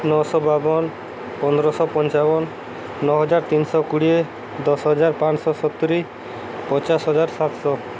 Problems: constant background noise